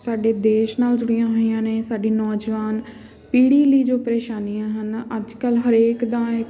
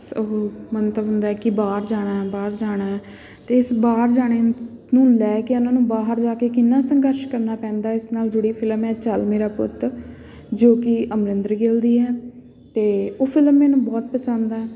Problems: constant background noise